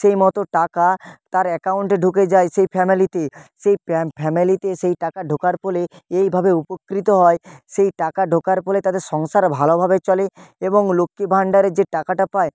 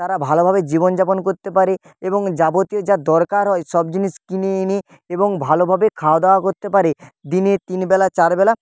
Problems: none marked